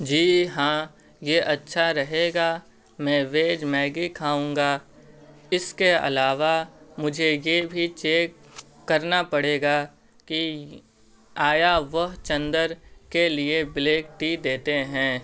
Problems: constant background noise